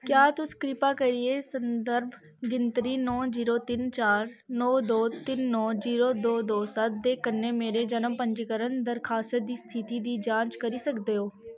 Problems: none marked